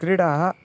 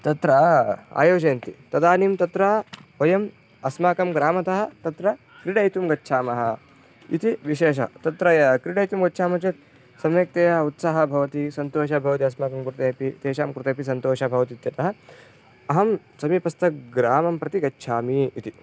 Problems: background sounds at intervals